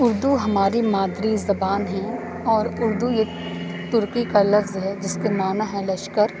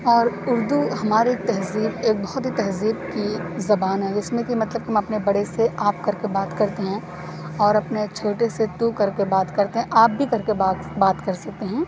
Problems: none marked